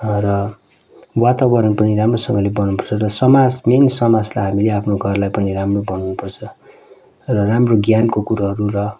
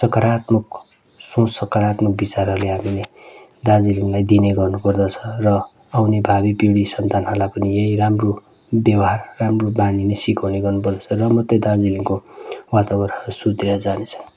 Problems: constant background noise